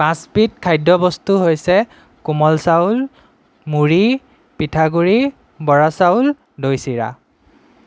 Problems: none marked